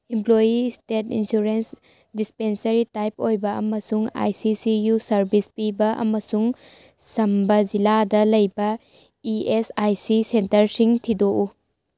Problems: none marked